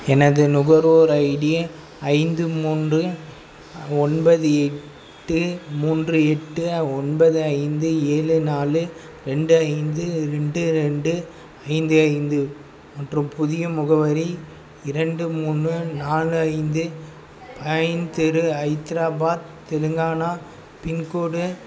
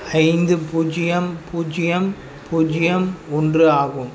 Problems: background sounds at intervals